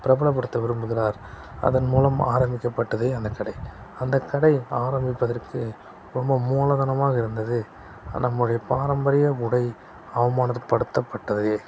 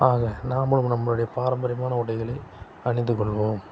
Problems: constant background noise